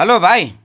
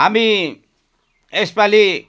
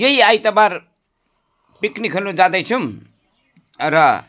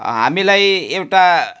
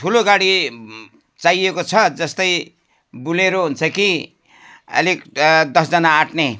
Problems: none marked